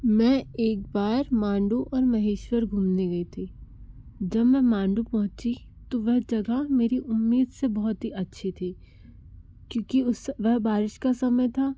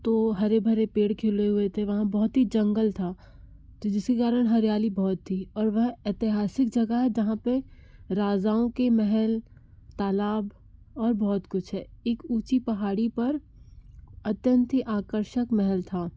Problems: background sounds at intervals